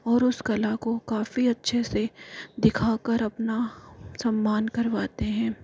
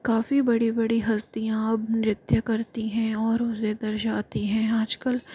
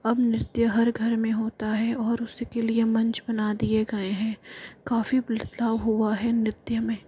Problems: constant background noise, low volume